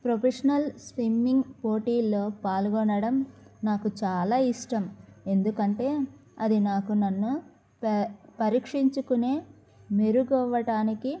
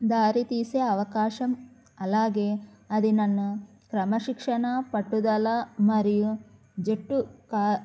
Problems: none marked